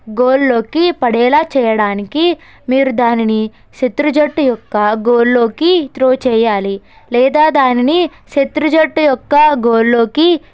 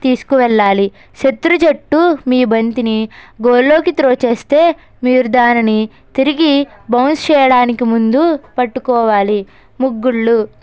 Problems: background sounds at intervals